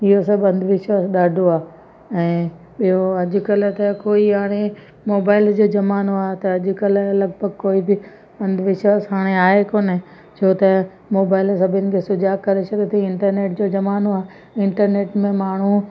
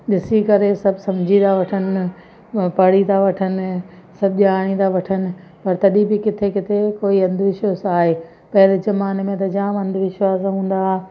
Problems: constant background noise, echo